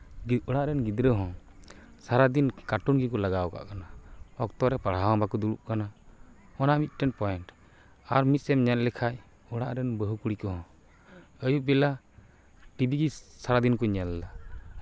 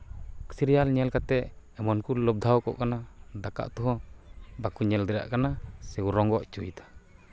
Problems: background sounds at intervals